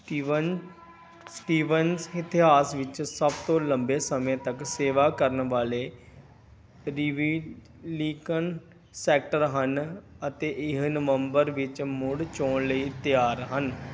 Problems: background sounds at intervals